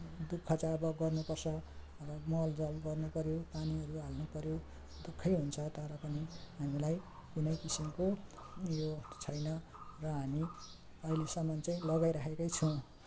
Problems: none marked